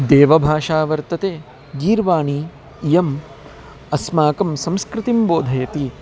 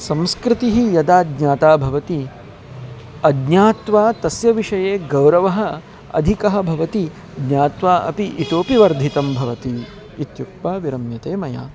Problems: constant background noise, background conversations at intervals